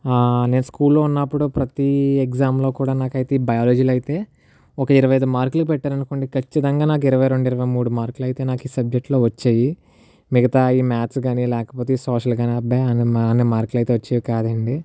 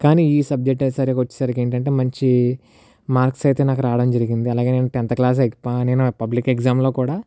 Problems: none marked